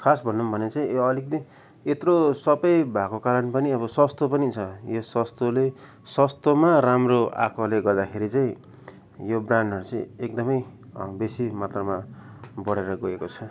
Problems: background conversations at intervals